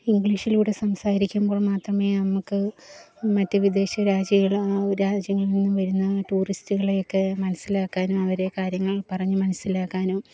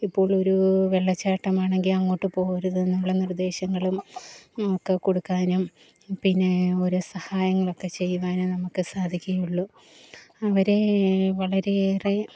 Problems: low volume